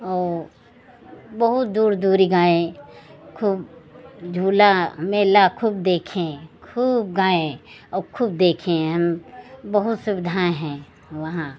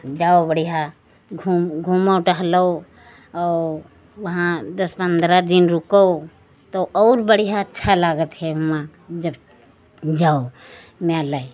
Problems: none marked